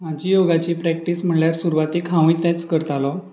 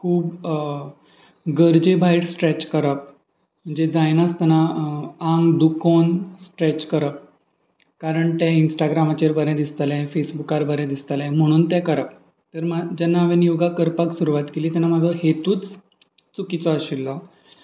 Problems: constant background noise